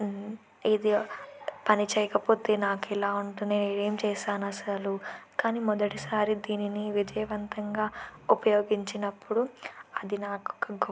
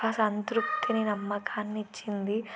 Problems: constant background noise